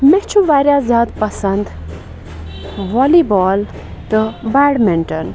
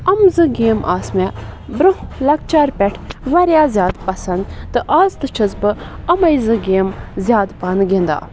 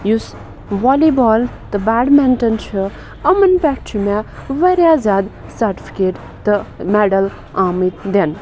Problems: constant background noise